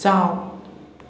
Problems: constant background noise, echo